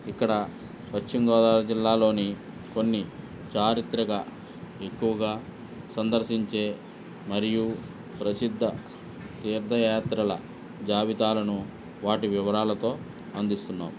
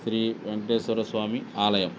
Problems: none marked